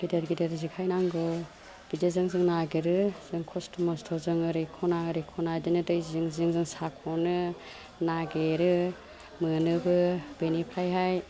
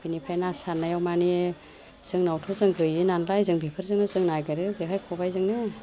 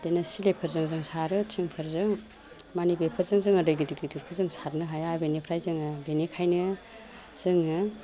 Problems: none marked